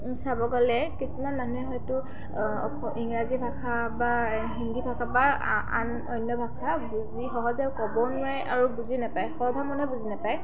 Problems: background sounds at intervals, continuous background conversations